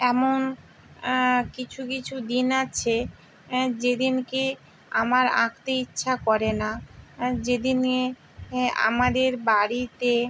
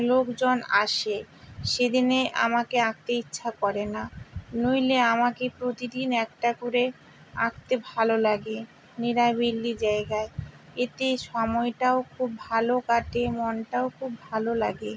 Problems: none marked